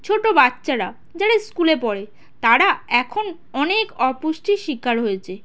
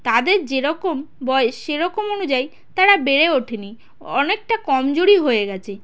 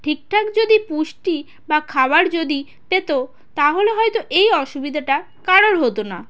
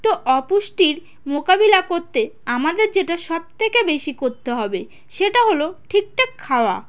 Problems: constant background noise, background conversations at intervals